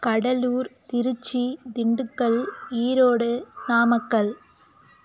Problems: background sounds at intervals